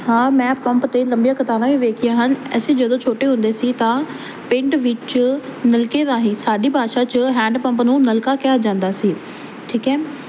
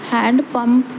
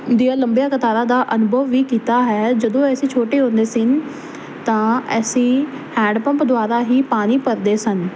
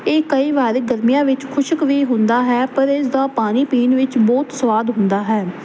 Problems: constant background noise